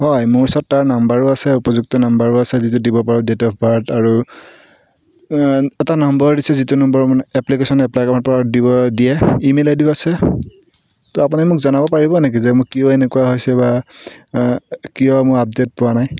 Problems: background sounds at intervals